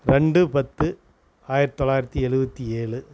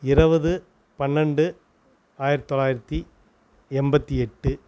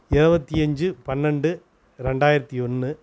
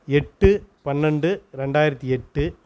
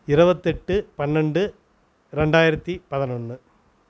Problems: none marked